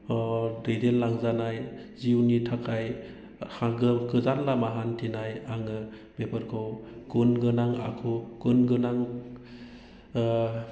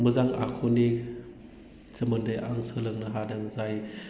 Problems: constant background noise